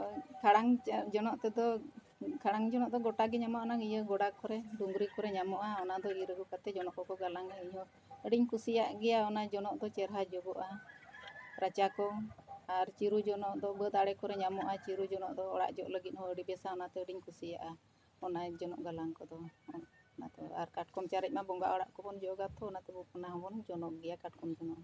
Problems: background sounds at intervals